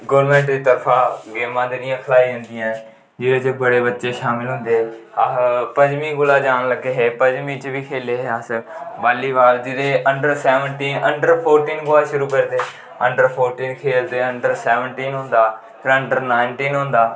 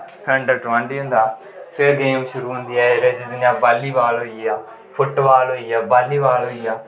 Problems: constant background noise, echo